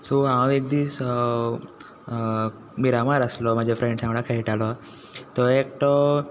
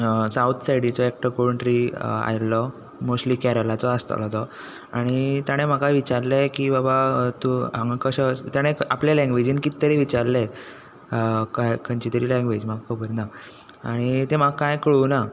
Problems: none marked